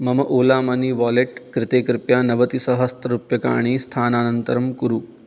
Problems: none marked